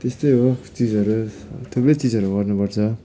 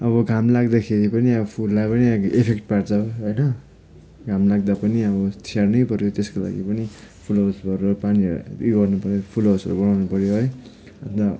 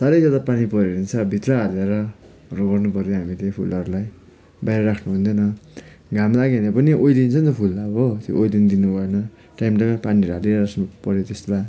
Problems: background sounds at intervals